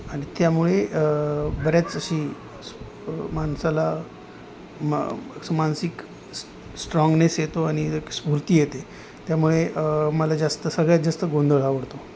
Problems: constant background noise